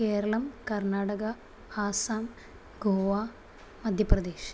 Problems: none marked